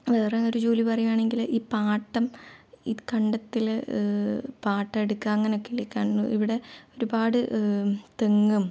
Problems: low volume